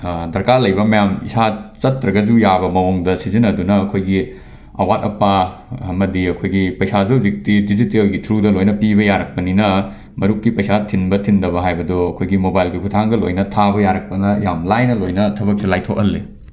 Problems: background sounds at intervals